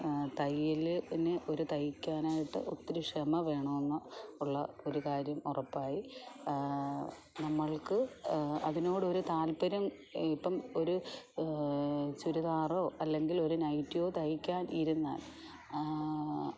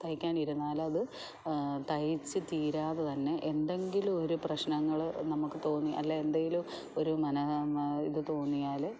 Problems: low volume